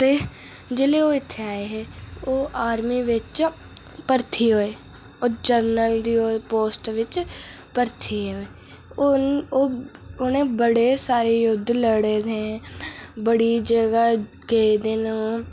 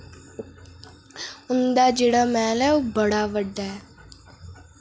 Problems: none marked